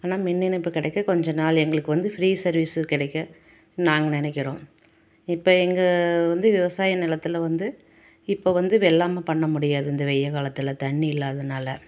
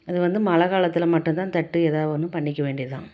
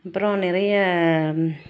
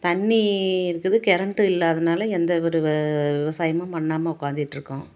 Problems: none marked